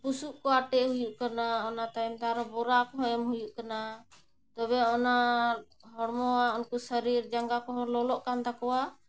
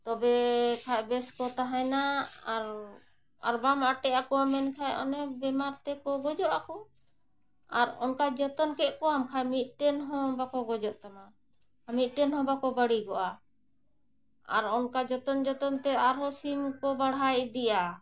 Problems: none marked